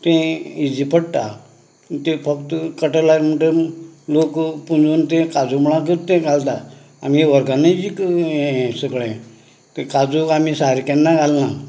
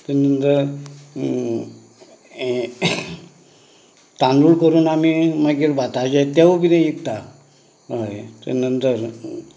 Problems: none marked